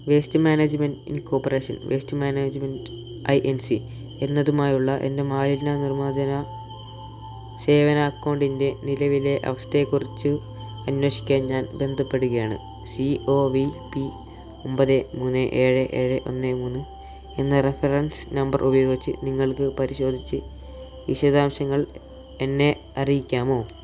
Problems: constant background noise, low volume